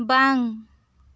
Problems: none marked